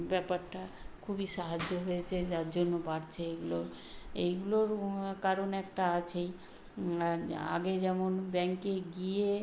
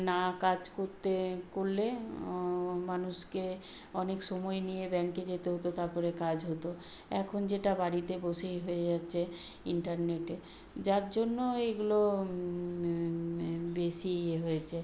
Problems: constant background noise